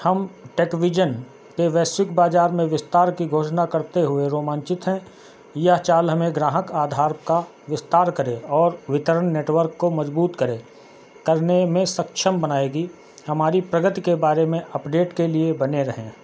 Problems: background sounds at intervals